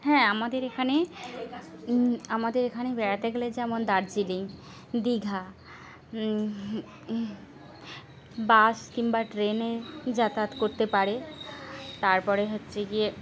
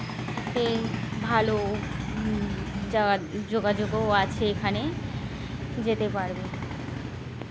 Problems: constant background noise